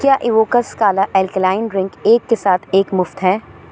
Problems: constant background noise